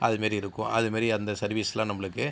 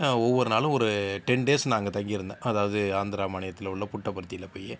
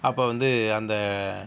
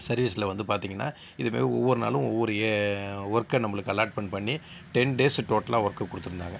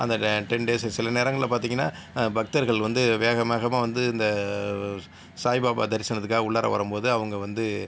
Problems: none marked